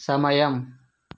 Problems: none marked